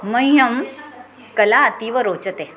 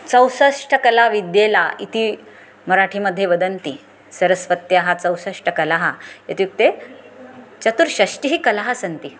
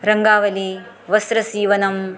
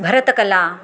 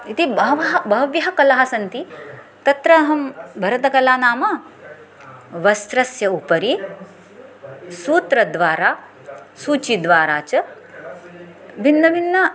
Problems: background sounds at intervals